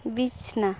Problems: constant background noise